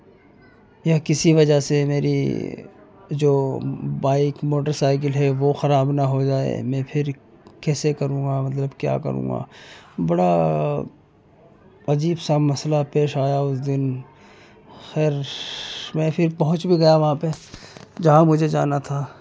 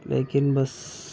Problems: background sounds at intervals, continuous background conversations